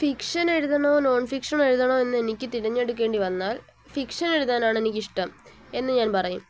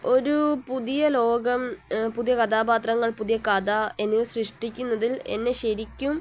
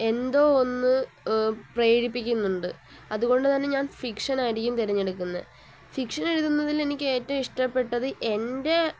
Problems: constant background noise, low volume